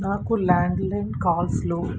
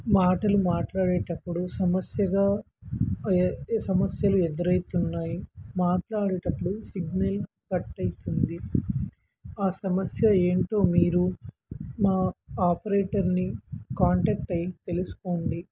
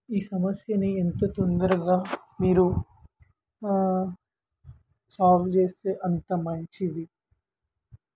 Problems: background sounds at intervals